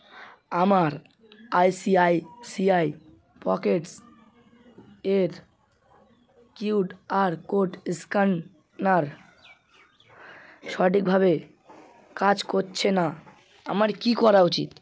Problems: none marked